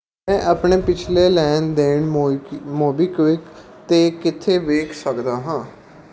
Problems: background sounds at intervals